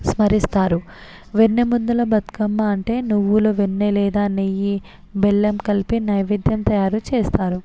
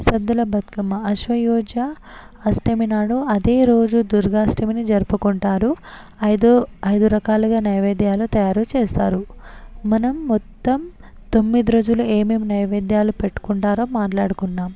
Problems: constant background noise, background conversations at intervals